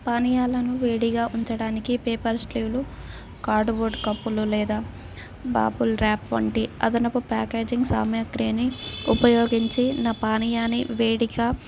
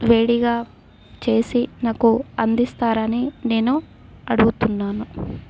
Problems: background sounds at intervals